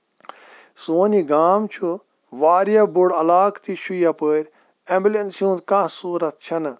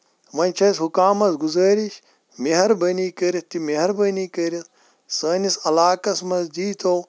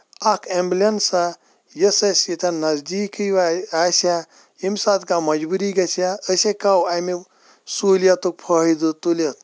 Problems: none marked